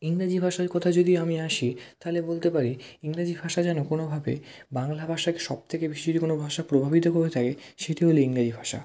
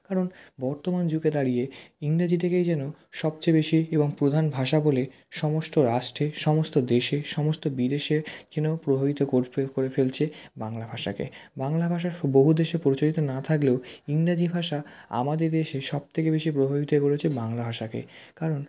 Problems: background sounds at intervals